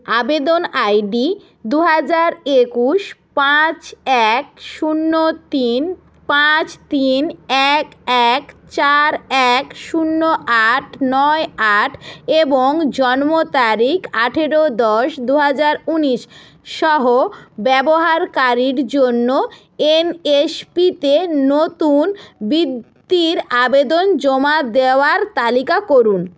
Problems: constant background noise